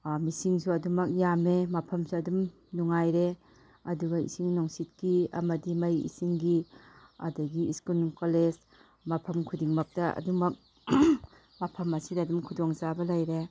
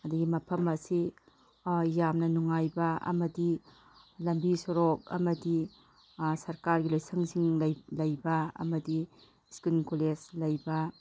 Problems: background sounds at intervals